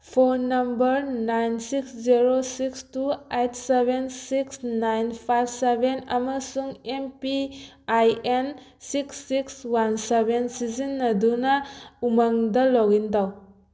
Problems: background sounds at intervals